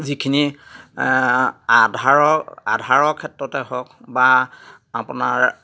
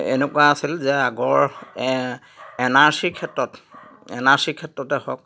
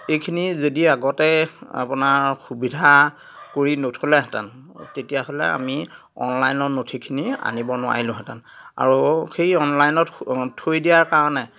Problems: none marked